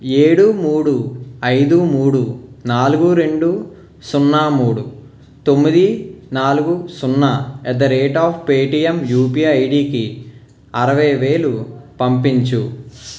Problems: background sounds at intervals